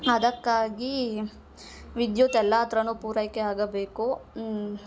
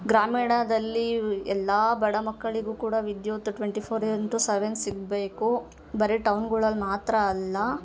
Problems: background sounds at intervals